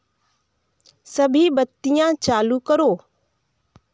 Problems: none marked